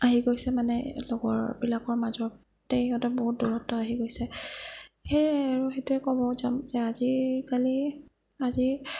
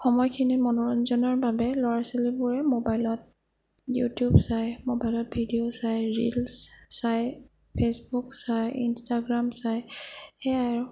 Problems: low volume